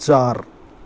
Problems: none marked